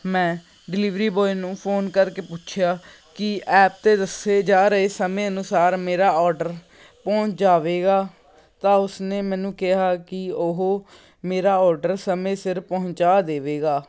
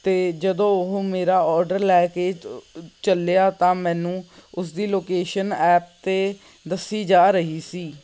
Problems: background sounds at intervals